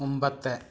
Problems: none marked